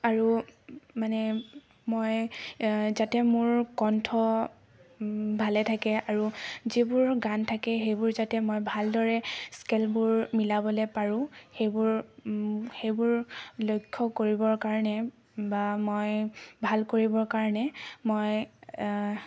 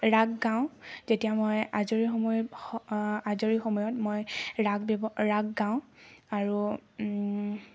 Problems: none marked